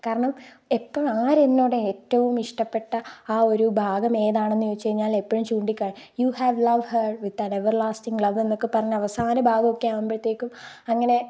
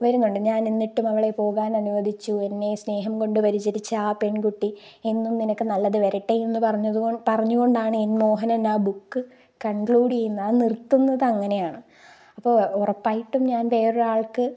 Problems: none marked